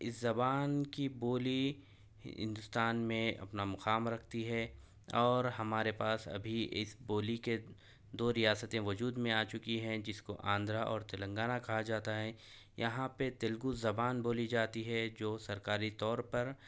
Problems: none marked